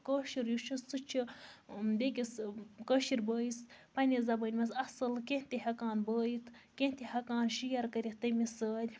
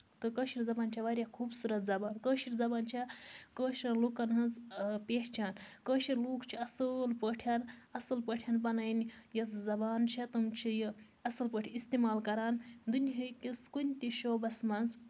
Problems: constant background noise